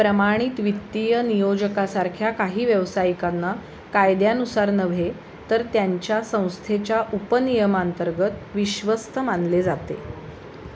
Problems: constant background noise